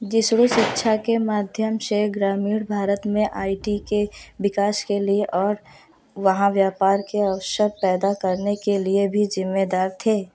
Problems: constant background noise, echo